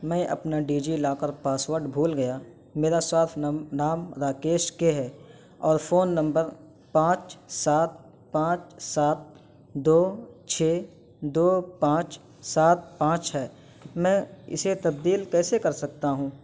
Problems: constant background noise